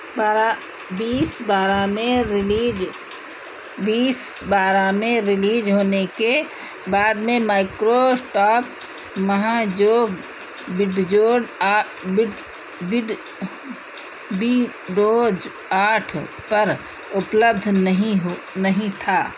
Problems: constant background noise